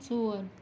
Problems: constant background noise, low volume